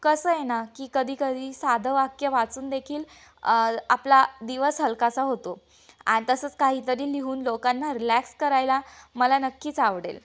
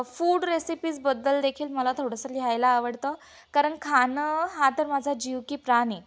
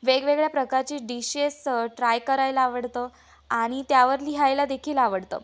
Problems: background sounds at intervals, background conversations at intervals